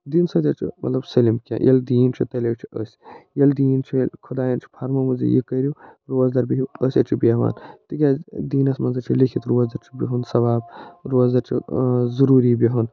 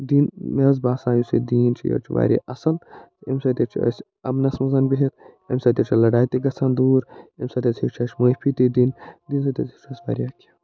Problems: none marked